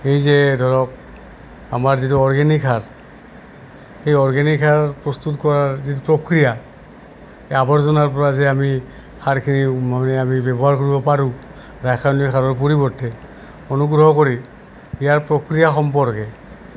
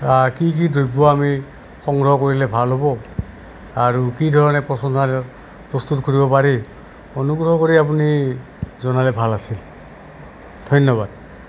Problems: none marked